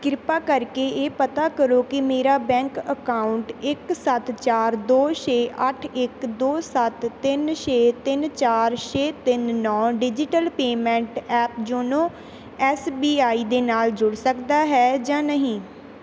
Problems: background sounds at intervals